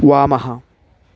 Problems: constant background noise